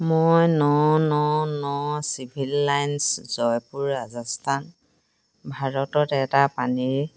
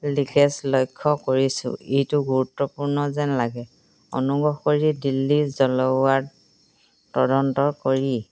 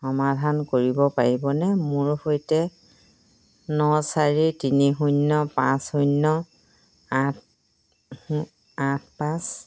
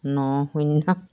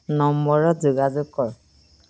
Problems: none marked